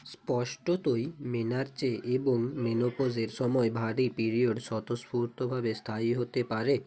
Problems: background conversations at intervals